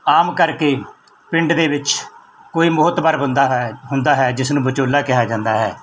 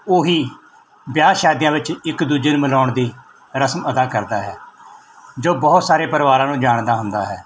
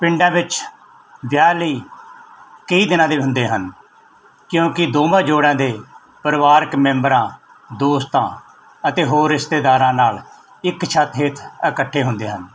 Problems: none marked